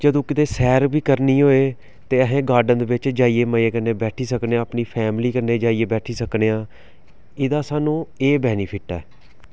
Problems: background sounds at intervals